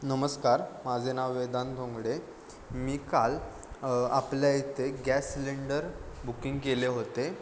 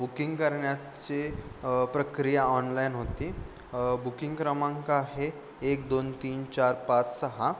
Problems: constant background noise